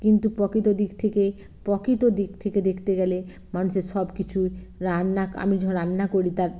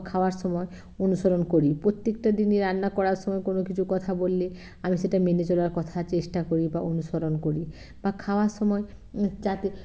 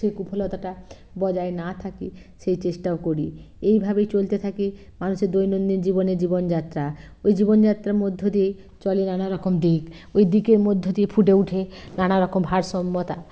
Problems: constant background noise